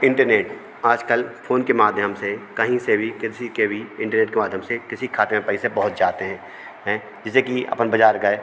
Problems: none marked